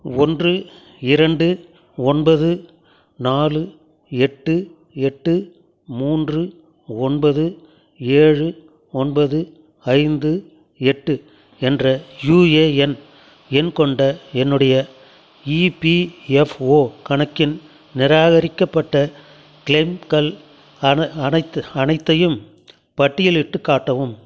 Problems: none marked